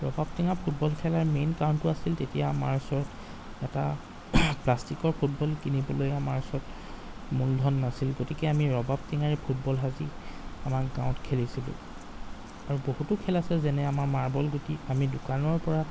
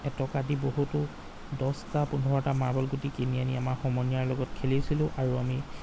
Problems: background sounds at intervals